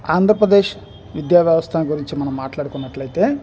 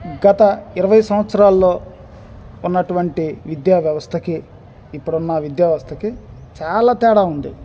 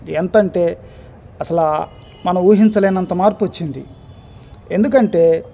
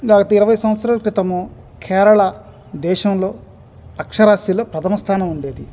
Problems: background sounds at intervals